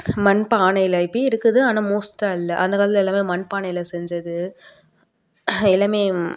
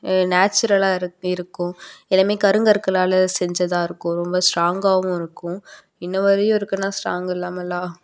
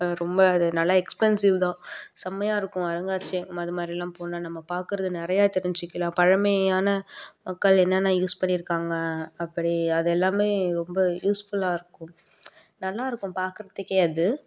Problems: background sounds at intervals